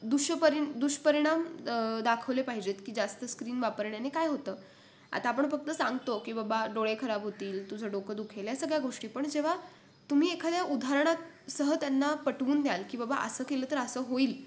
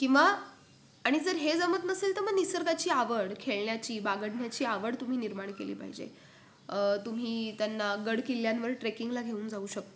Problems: constant background noise